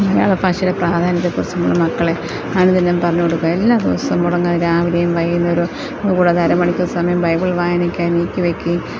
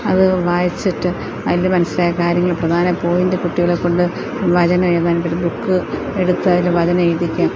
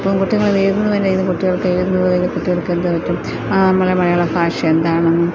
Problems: constant background noise, low volume